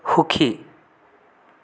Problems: none marked